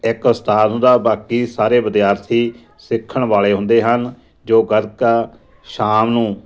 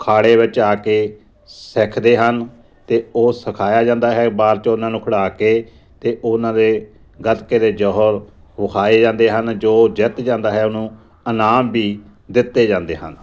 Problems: constant background noise, background conversations at intervals